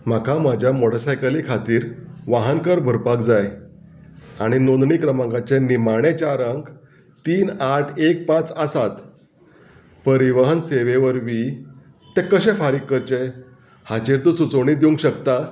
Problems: none marked